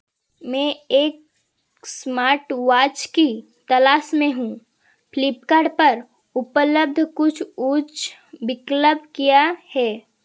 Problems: constant background noise